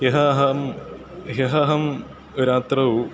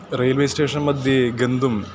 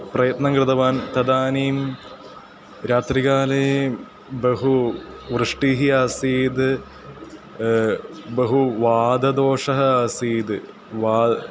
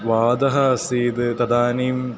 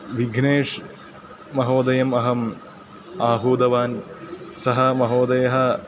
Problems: constant background noise